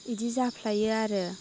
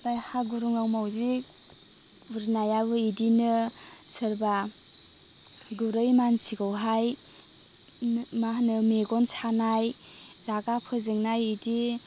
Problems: constant background noise